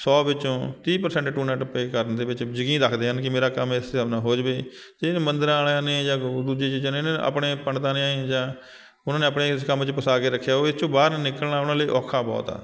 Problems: constant background noise